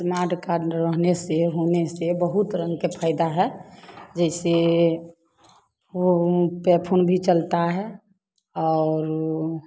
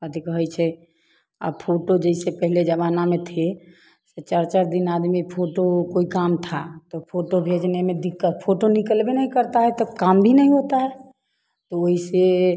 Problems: constant background noise